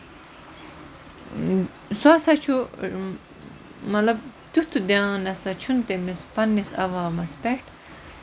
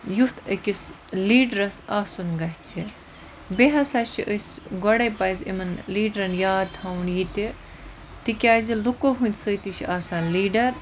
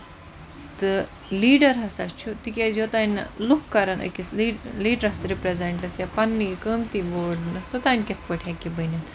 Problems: constant background noise